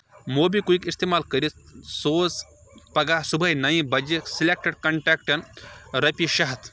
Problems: constant background noise